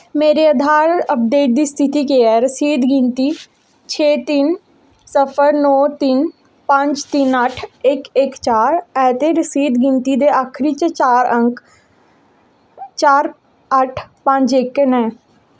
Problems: none marked